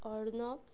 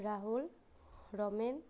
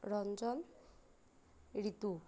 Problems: none marked